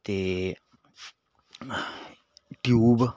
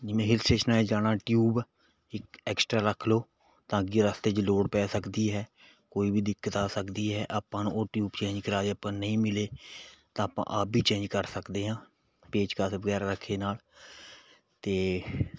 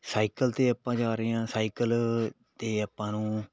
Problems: background sounds at intervals